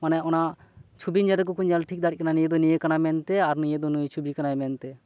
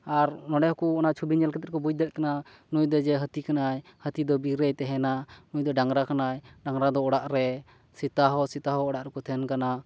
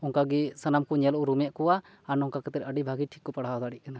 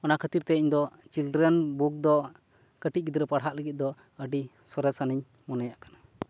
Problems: background sounds at intervals